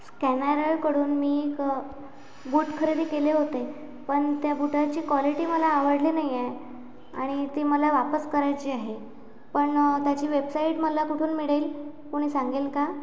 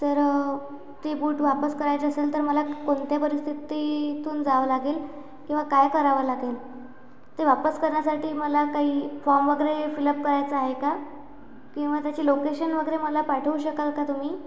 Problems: none marked